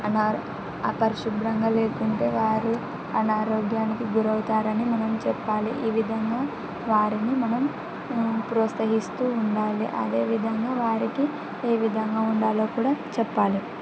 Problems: constant background noise